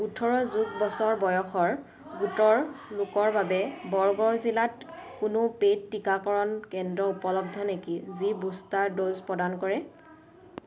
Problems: low volume